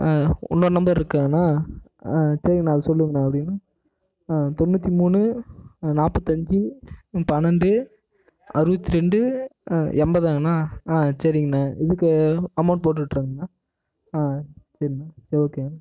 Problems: echo